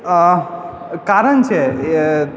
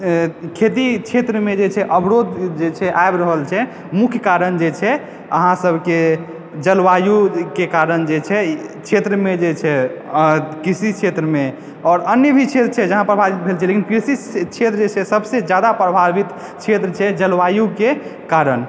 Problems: background sounds at intervals